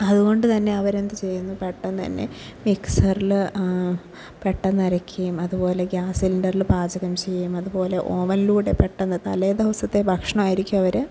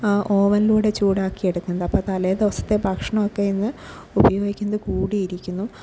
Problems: low volume